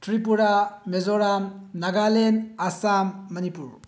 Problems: low volume